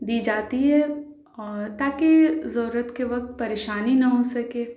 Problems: constant background noise